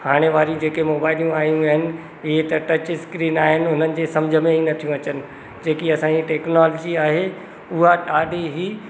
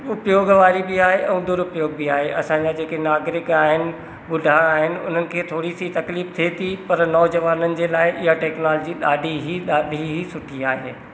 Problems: constant background noise, echo